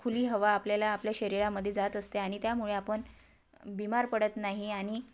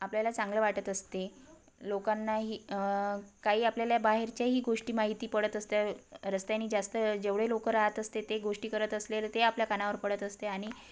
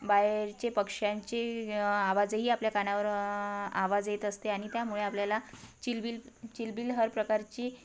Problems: constant background noise